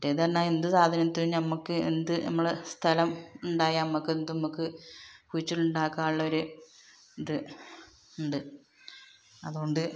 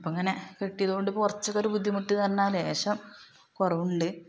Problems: background sounds at intervals